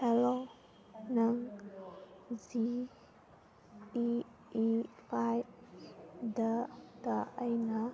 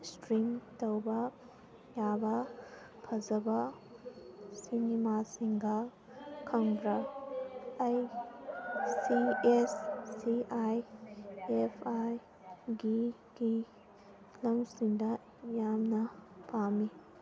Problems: background sounds at intervals, background conversations at intervals